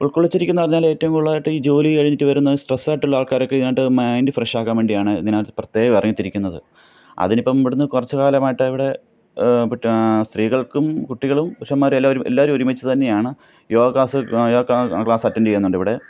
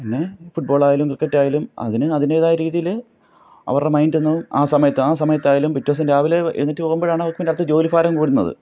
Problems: none marked